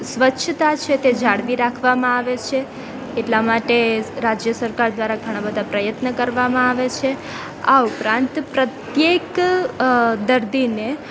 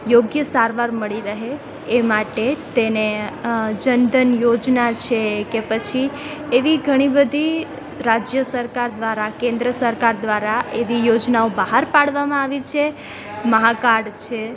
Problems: constant background noise, background conversations at intervals